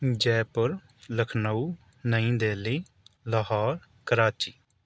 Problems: background sounds at intervals